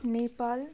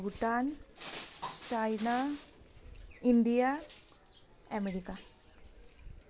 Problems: constant background noise